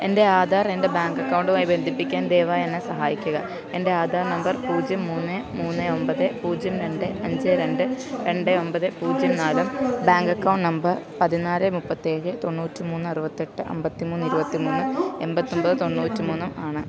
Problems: continuous background conversations